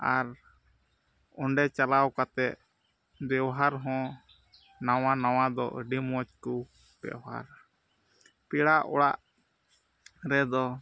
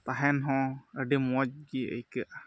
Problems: background sounds at intervals, low volume